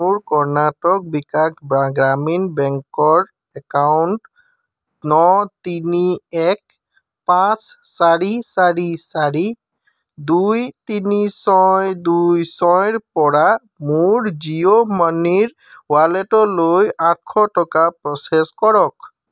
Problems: constant background noise